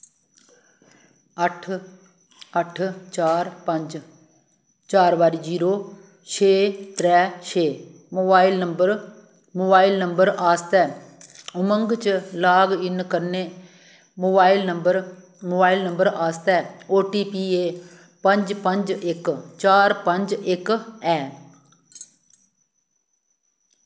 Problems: background sounds at intervals, echo